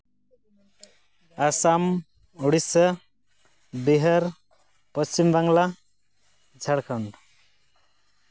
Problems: none marked